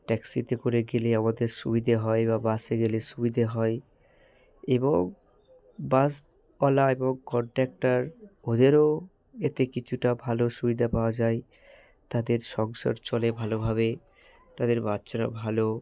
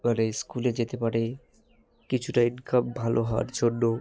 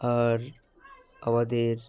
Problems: none marked